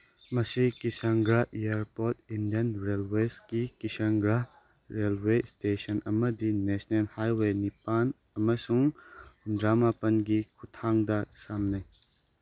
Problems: none marked